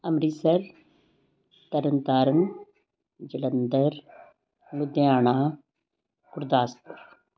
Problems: background sounds at intervals